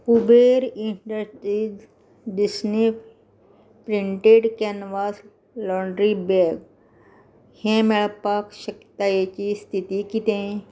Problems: none marked